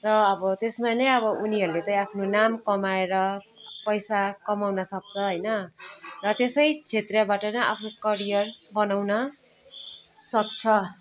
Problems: background conversations at intervals